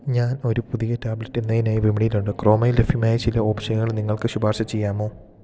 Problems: none marked